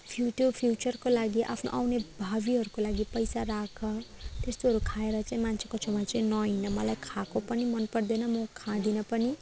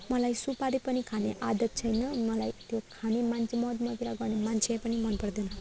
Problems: background sounds at intervals, background conversations at intervals